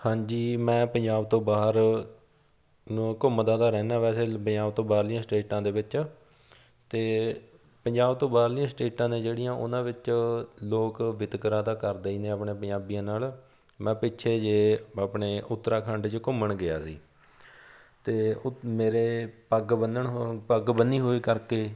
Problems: none marked